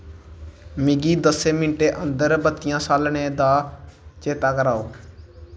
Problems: none marked